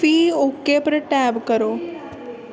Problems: constant background noise